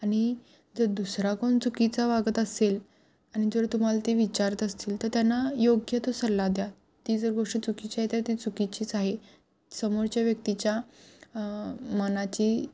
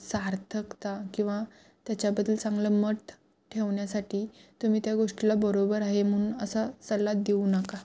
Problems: background sounds at intervals